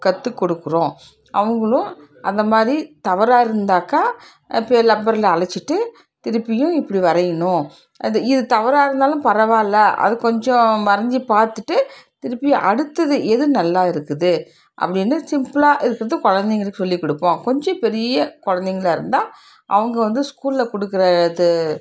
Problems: background sounds at intervals, background conversations at intervals